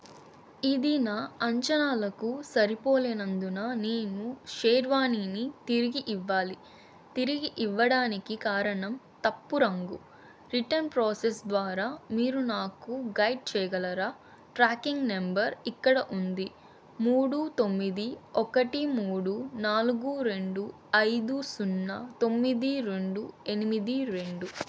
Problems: constant background noise